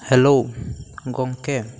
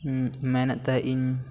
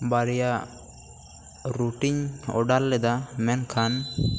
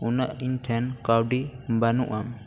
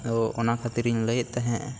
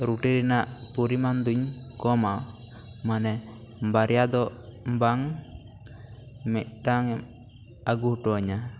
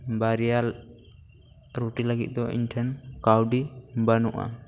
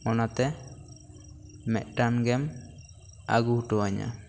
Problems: constant background noise